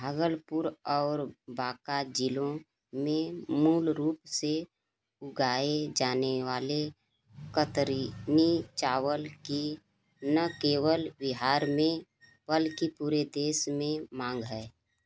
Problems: background sounds at intervals